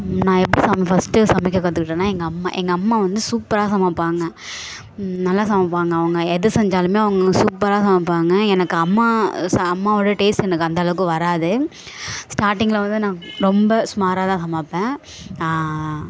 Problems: background sounds at intervals, background conversations at intervals